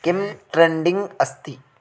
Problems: constant background noise